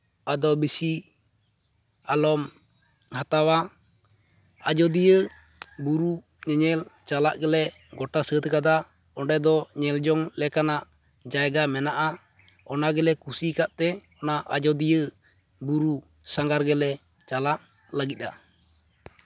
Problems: none marked